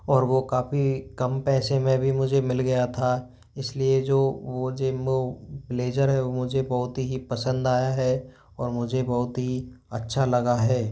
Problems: background sounds at intervals